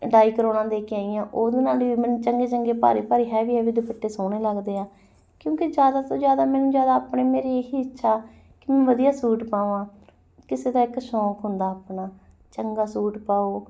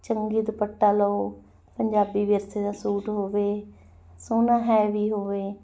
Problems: background sounds at intervals, background conversations at intervals